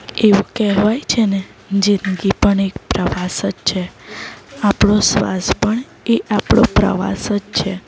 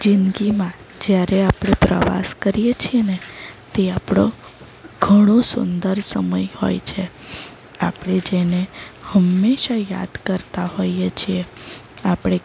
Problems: background sounds at intervals